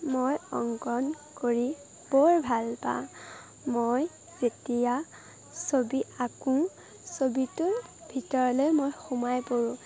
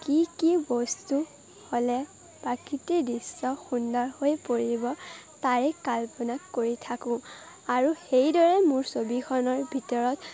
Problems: constant background noise, background conversations at intervals